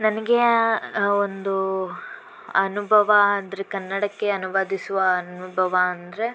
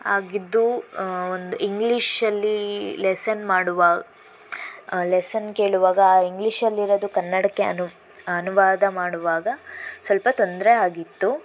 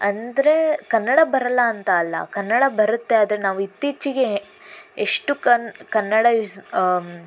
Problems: constant background noise